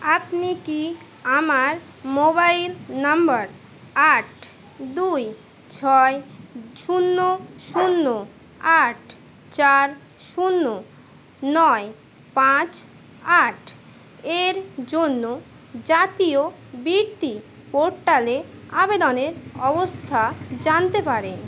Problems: constant background noise